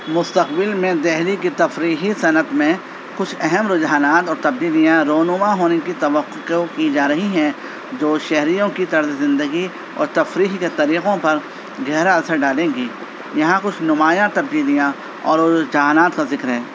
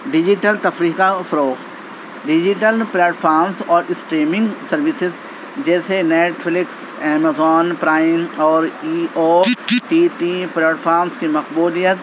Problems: constant background noise